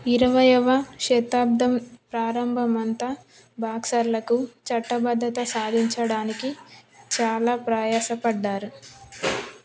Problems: background sounds at intervals